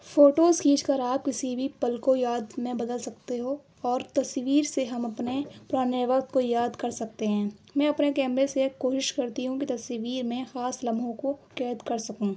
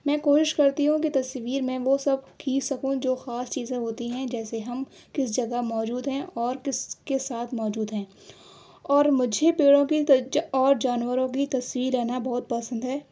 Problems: constant background noise